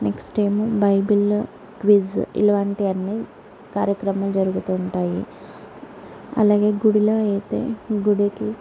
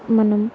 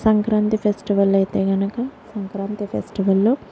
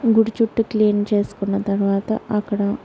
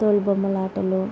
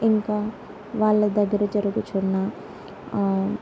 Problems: none marked